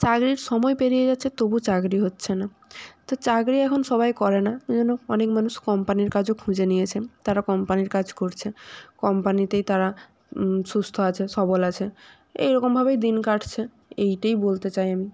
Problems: background sounds at intervals